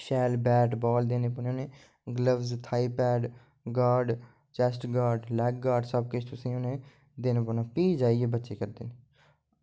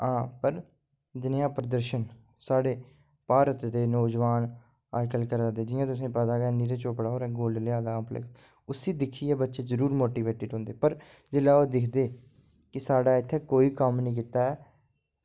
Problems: low volume